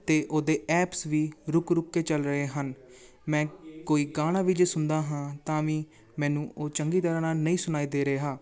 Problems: background conversations at intervals